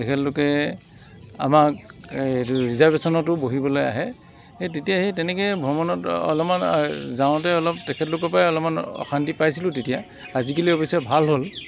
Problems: constant background noise